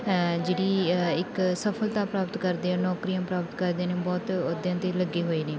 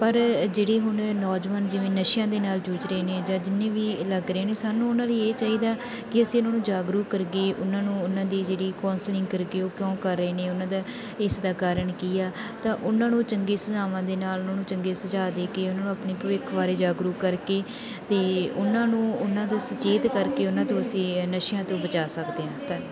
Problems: continuous background conversations